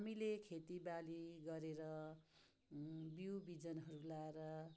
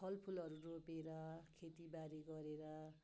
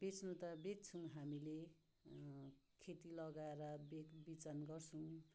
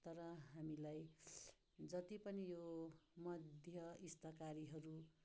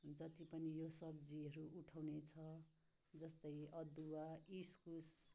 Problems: low volume